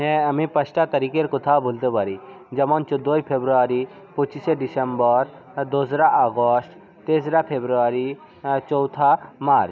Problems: continuous background conversations